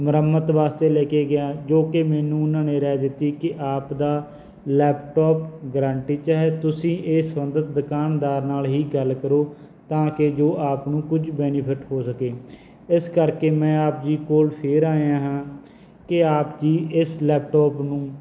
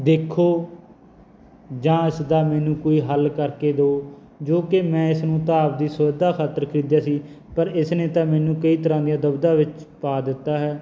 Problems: background sounds at intervals